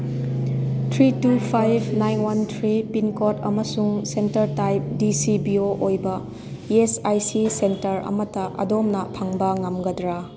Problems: background sounds at intervals